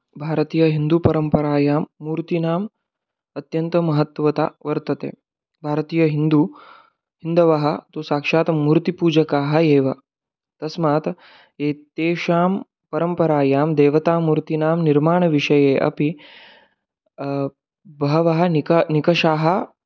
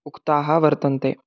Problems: background sounds at intervals